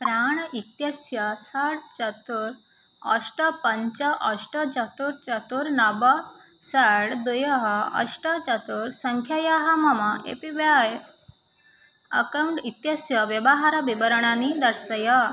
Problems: none marked